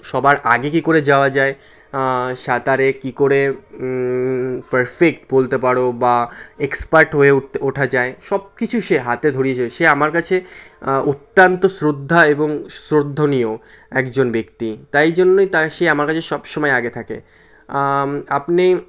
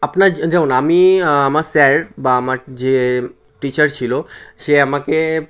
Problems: constant background noise